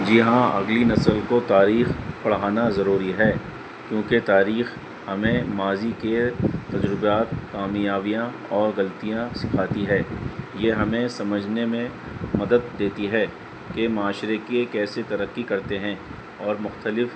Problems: constant background noise